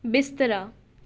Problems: none marked